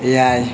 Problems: background sounds at intervals